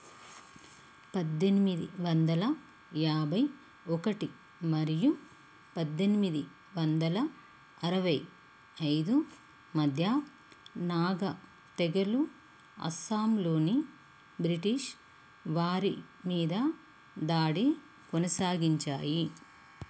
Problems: constant background noise